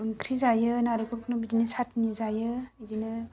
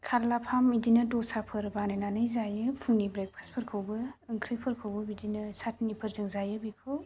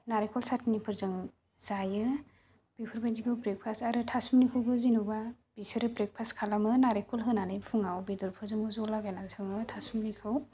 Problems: low volume